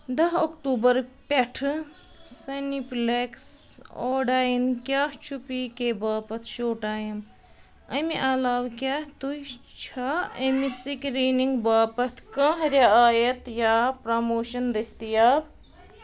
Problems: background conversations at intervals